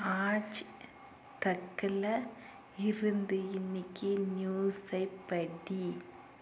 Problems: none marked